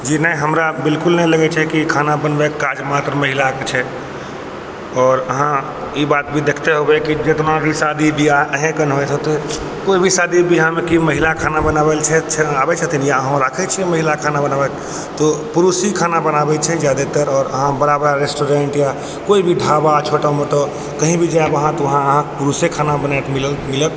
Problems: none marked